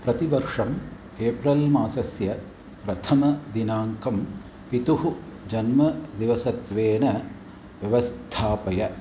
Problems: none marked